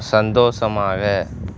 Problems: constant background noise